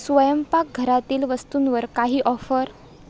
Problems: constant background noise